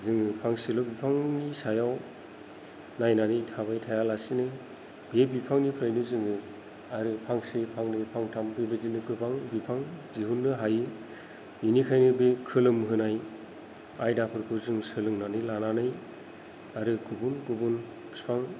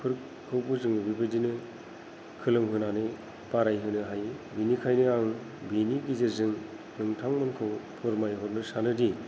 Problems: low volume